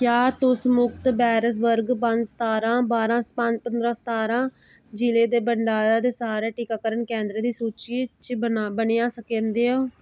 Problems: background sounds at intervals